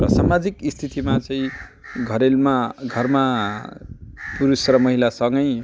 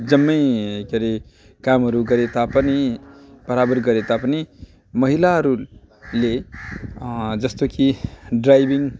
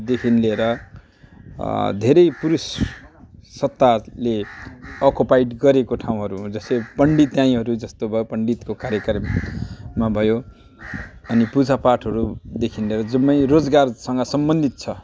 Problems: none marked